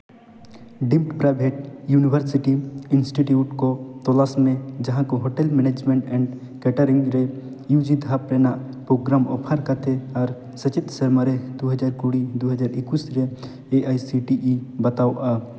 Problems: none marked